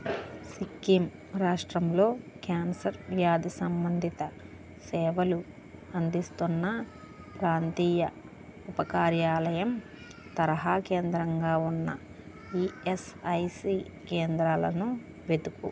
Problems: constant background noise